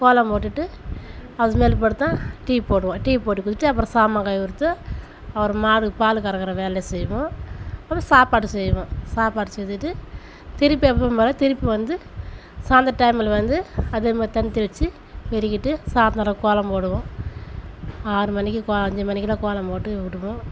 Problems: background sounds at intervals